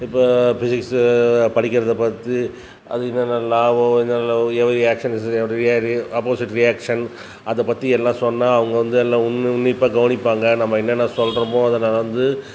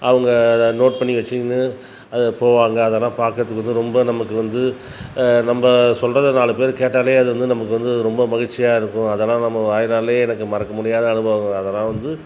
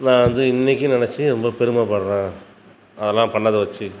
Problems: background sounds at intervals